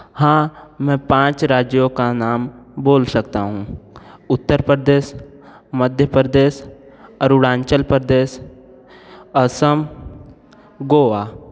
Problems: none marked